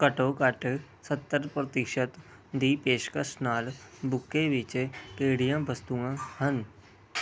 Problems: none marked